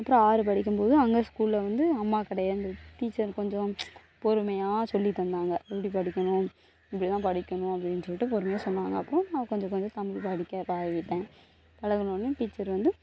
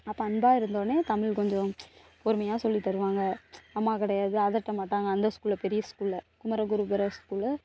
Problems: none marked